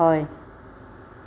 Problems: constant background noise